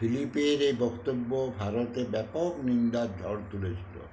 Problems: none marked